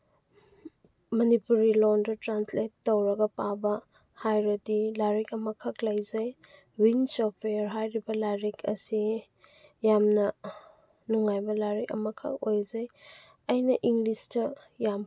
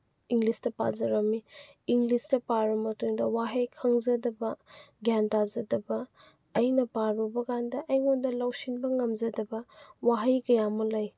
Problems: none marked